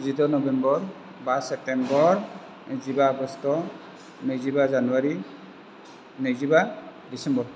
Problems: constant background noise